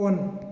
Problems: none marked